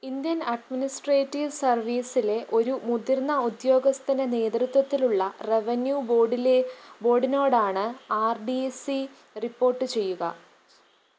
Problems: background sounds at intervals